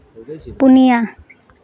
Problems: constant background noise, background conversations at intervals